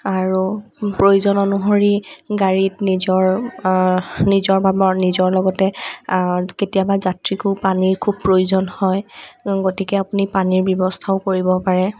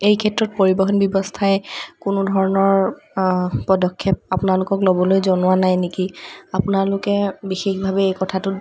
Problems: none marked